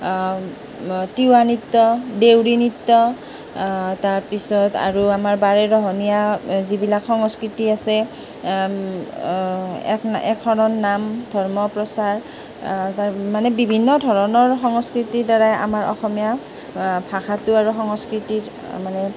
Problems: none marked